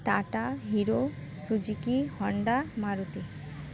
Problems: constant background noise, background conversations at intervals